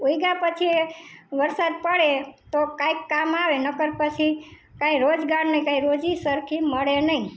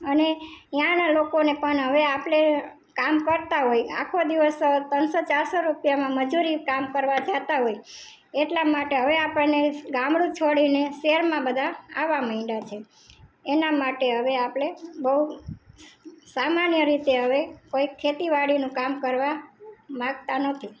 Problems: background conversations at intervals